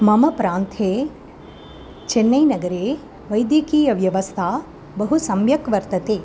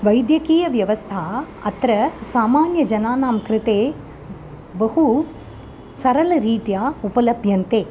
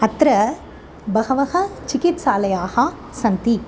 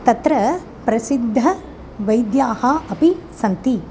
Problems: constant background noise